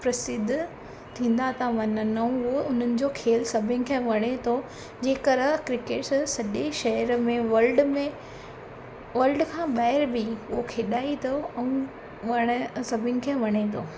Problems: constant background noise